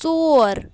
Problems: background sounds at intervals